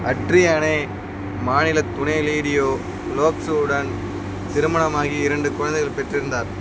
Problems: none marked